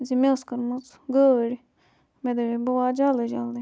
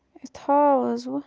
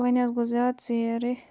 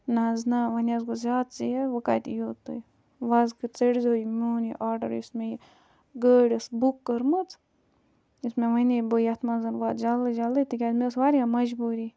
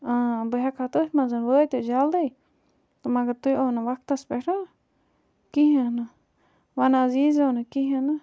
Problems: background sounds at intervals